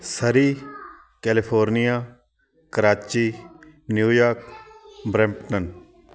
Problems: continuous background conversations